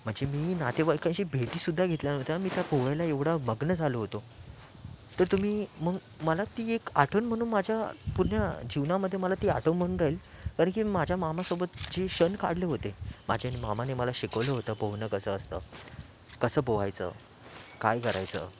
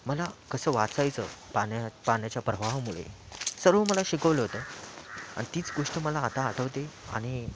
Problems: background sounds at intervals